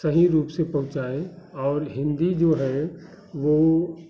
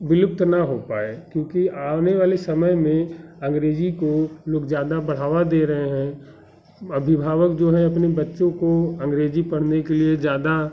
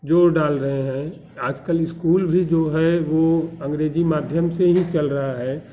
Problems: constant background noise